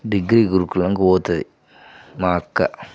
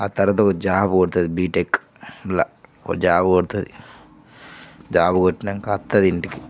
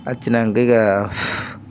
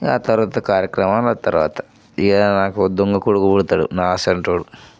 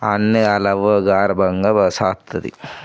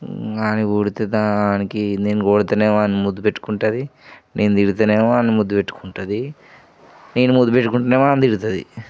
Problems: background sounds at intervals